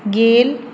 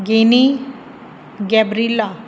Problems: constant background noise